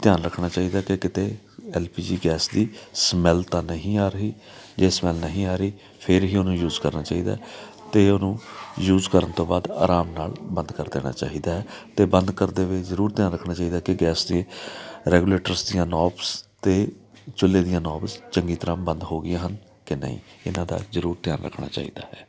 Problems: background sounds at intervals